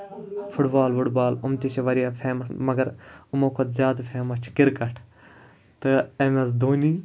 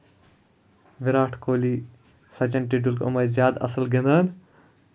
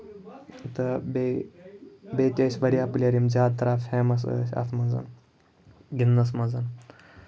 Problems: none marked